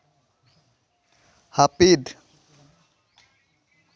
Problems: none marked